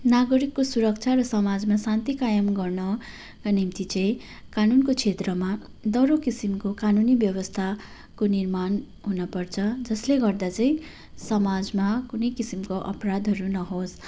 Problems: background sounds at intervals